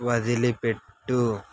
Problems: background sounds at intervals